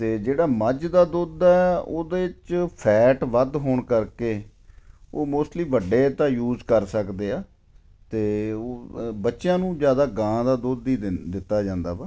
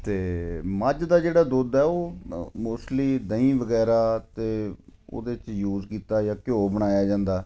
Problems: none marked